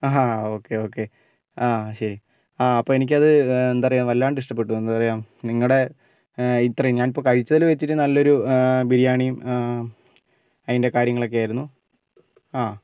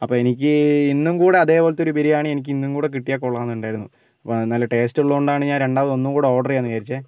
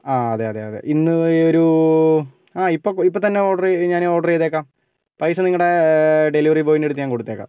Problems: none marked